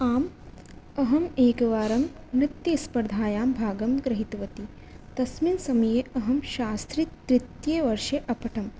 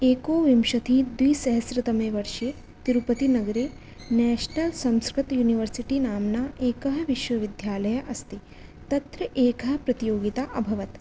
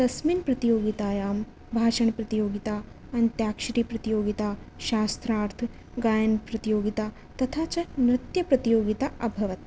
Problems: none marked